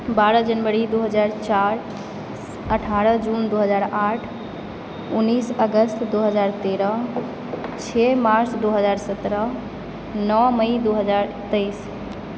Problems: constant background noise